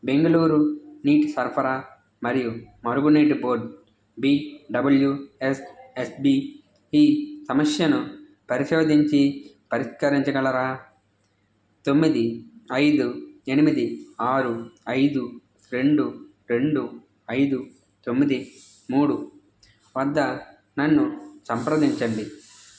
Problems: background sounds at intervals